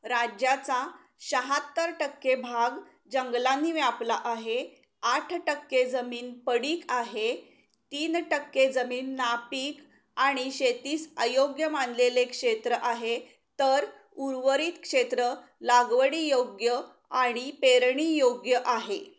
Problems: background sounds at intervals